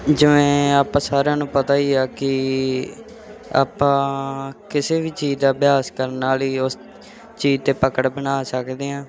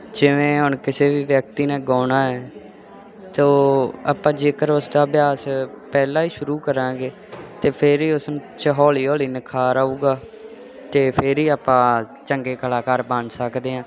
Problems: constant background noise